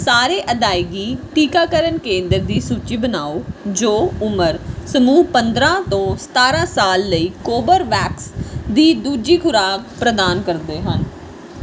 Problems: none marked